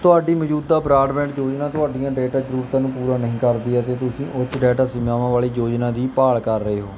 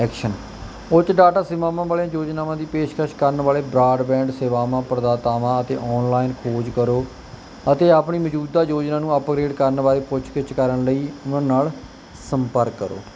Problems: background sounds at intervals